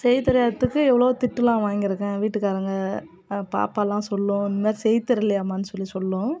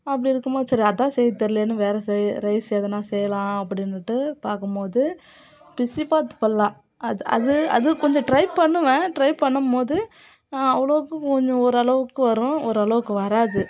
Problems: continuous background conversations